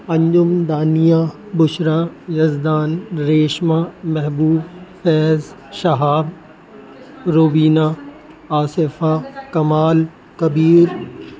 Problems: constant background noise